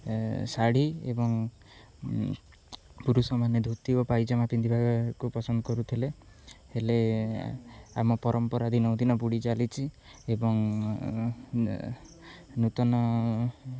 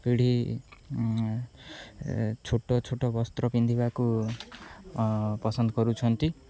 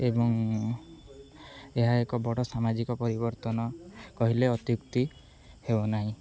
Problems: none marked